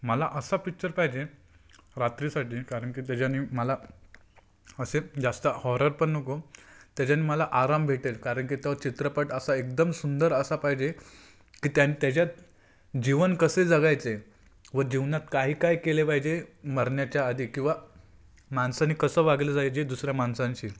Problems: constant background noise